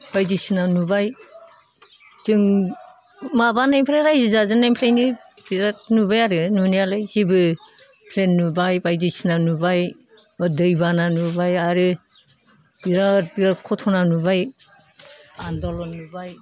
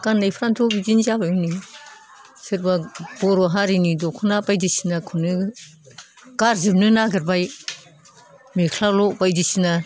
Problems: none marked